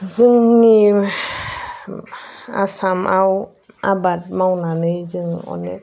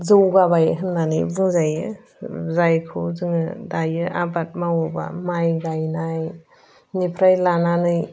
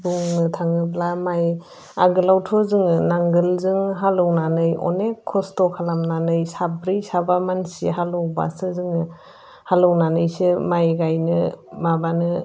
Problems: constant background noise